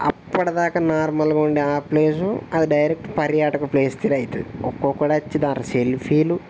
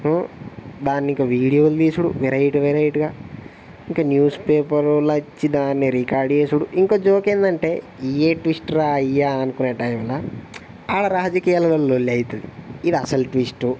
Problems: none marked